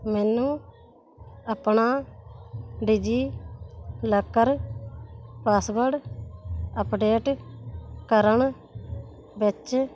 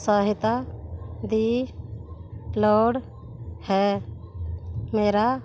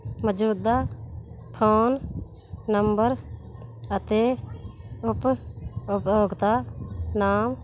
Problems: constant background noise